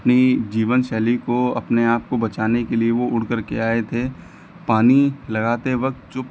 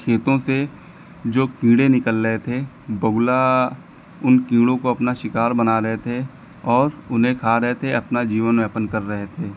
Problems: none marked